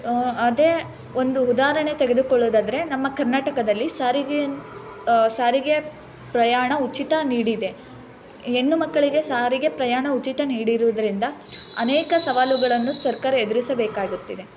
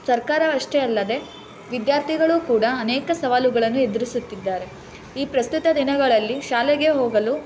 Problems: constant background noise